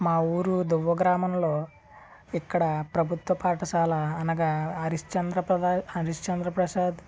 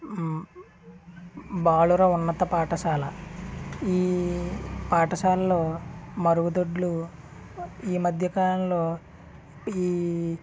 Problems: constant background noise, background conversations at intervals